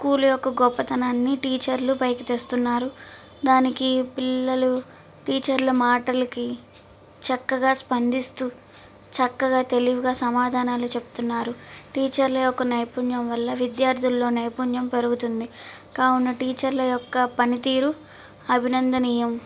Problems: constant background noise